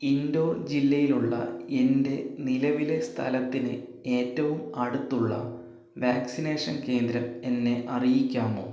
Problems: low volume